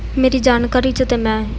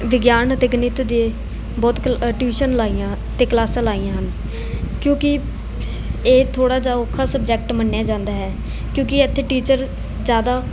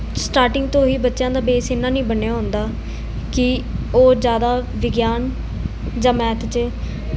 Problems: constant background noise, background conversations at intervals